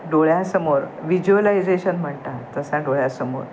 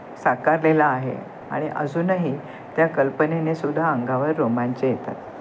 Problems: constant background noise